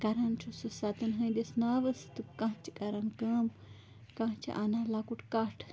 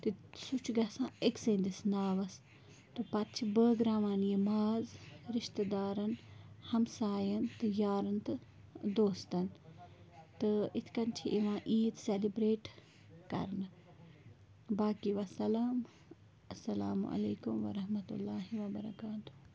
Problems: constant background noise